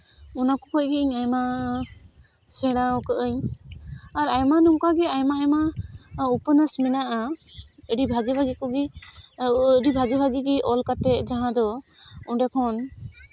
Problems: constant background noise, continuous background conversations